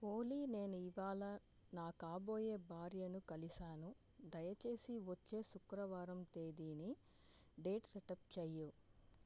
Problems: low volume